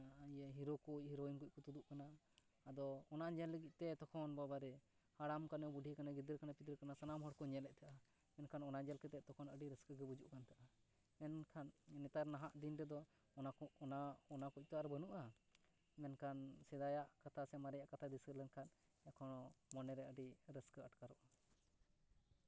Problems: background sounds at intervals